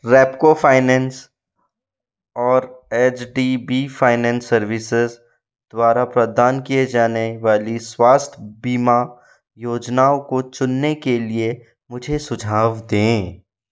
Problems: none marked